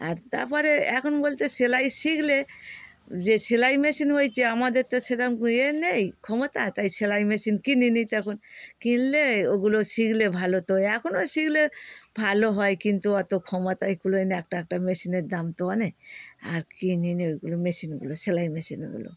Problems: none marked